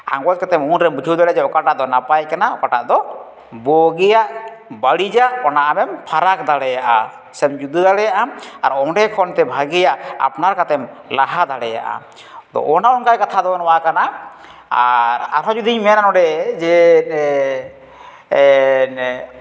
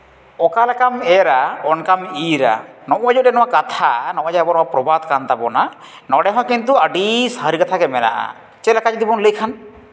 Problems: none marked